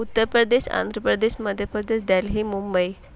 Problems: none marked